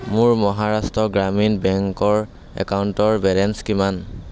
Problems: none marked